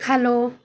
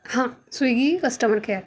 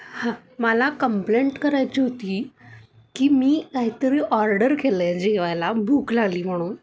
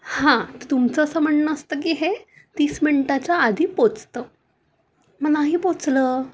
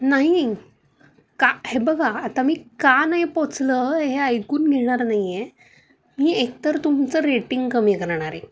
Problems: none marked